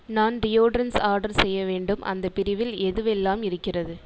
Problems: echo